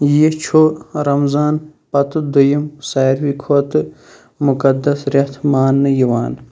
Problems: constant background noise